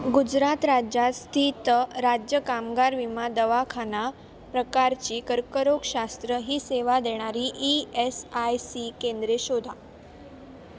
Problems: constant background noise, background conversations at intervals